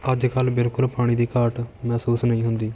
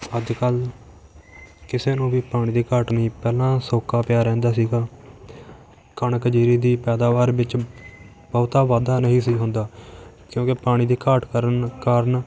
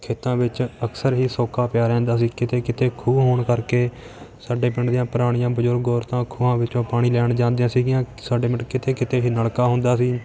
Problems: constant background noise